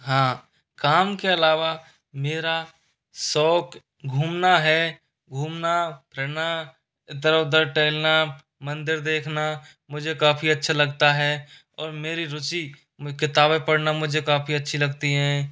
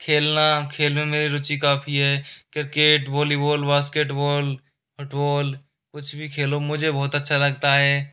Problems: none marked